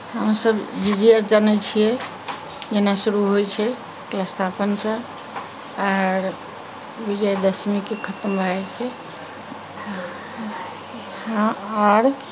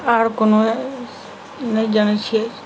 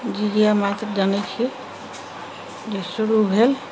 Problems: background sounds at intervals, background conversations at intervals